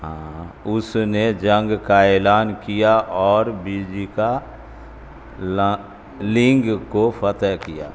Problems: constant background noise